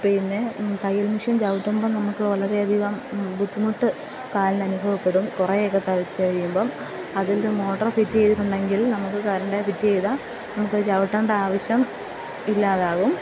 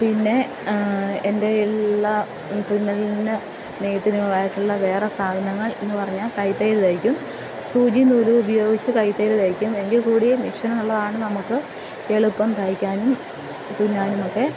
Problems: constant background noise, low volume